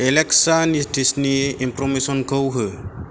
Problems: none marked